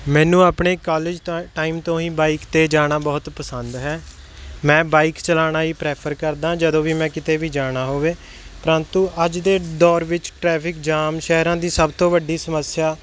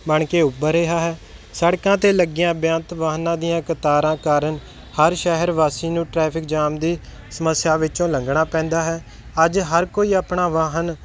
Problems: none marked